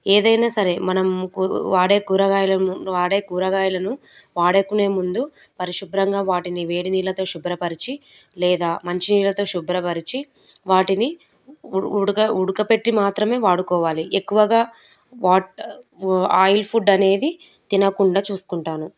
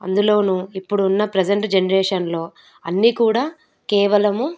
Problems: none marked